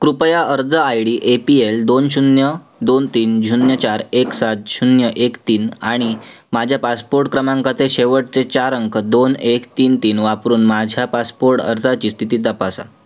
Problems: none marked